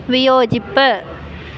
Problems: none marked